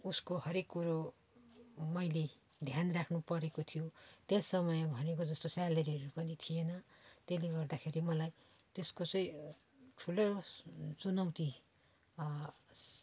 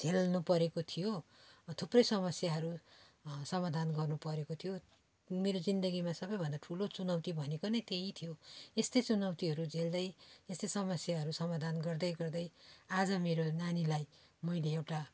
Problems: none marked